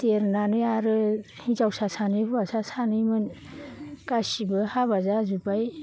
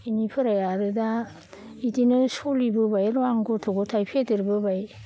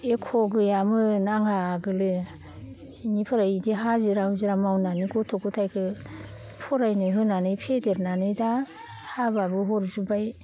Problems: none marked